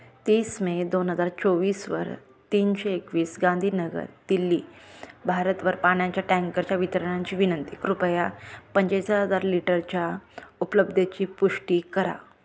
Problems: none marked